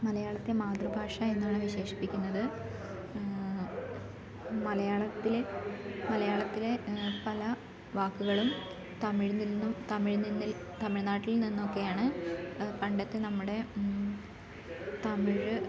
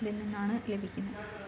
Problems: background conversations at intervals